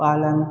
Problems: constant background noise